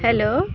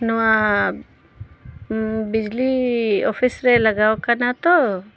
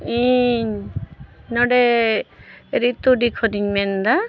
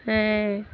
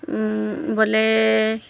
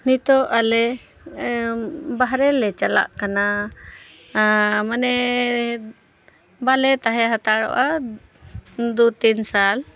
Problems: none marked